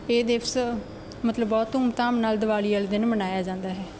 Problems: background sounds at intervals